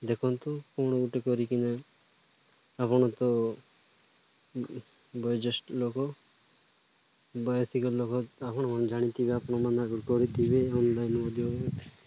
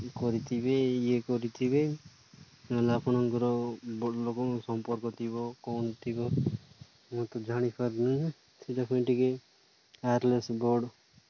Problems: none marked